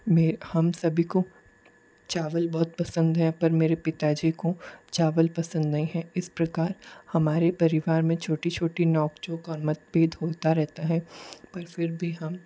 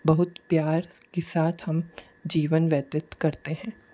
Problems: low volume